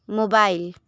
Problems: none marked